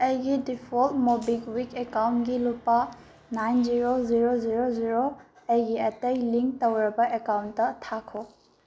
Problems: low volume